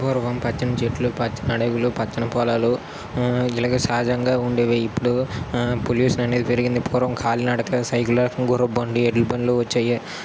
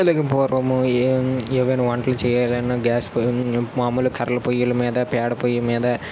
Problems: constant background noise